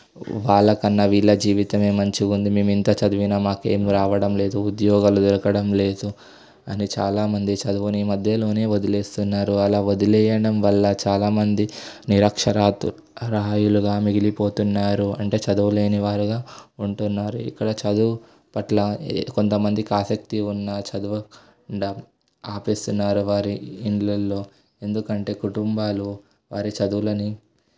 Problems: background sounds at intervals